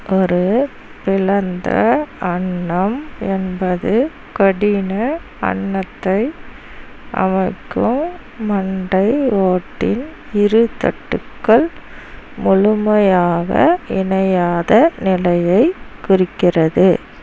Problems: none marked